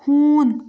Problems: none marked